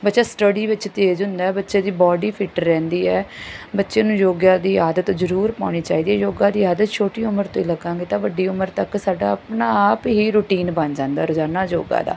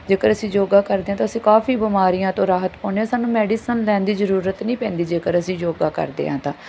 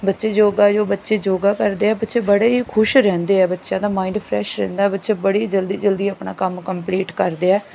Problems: none marked